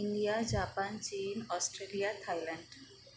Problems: none marked